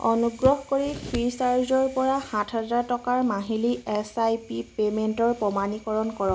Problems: constant background noise